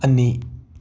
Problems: background sounds at intervals